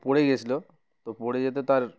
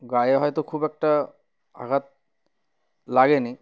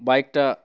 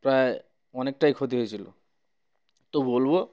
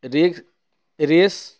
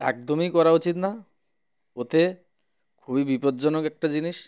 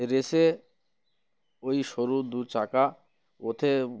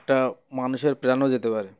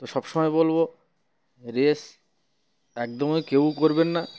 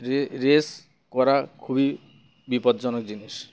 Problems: none marked